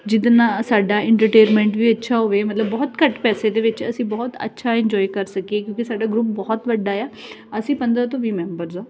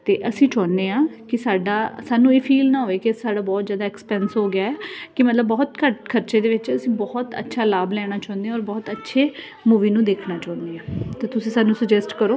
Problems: none marked